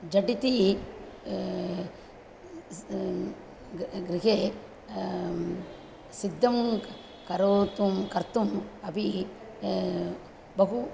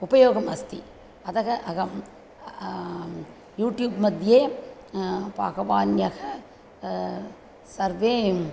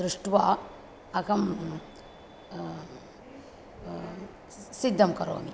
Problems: constant background noise